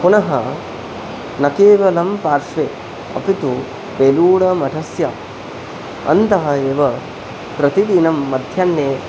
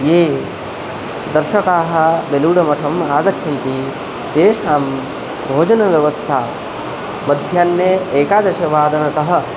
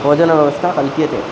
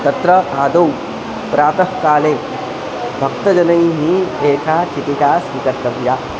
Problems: none marked